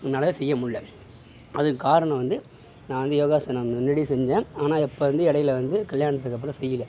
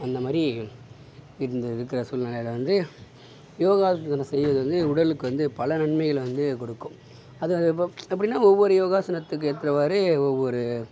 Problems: background sounds at intervals